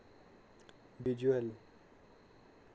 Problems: constant background noise